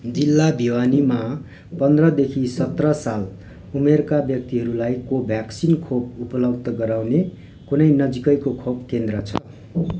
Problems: background sounds at intervals